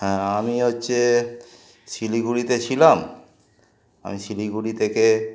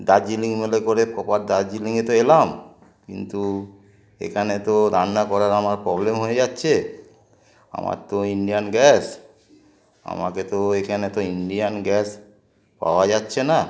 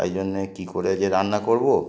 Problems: constant background noise